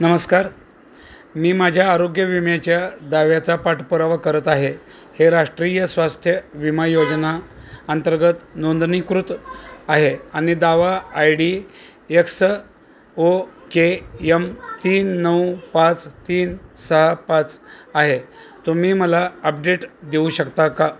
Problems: constant background noise, continuous background conversations